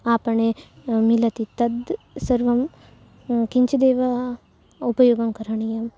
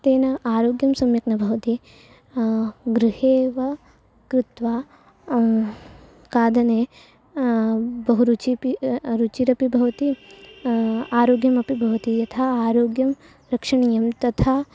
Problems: none marked